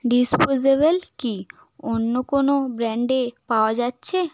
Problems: background sounds at intervals